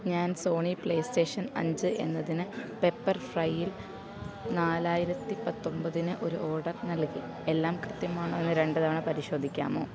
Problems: background sounds at intervals